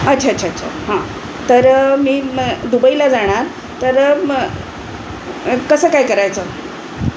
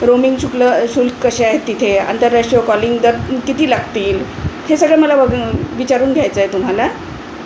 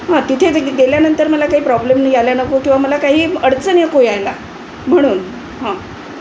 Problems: constant background noise